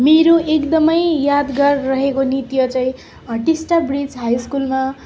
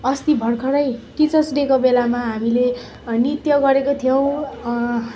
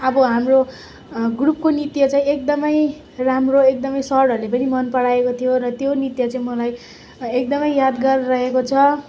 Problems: background sounds at intervals